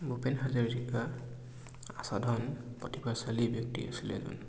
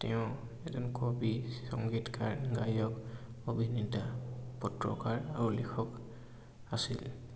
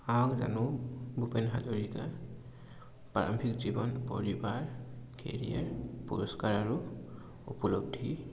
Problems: constant background noise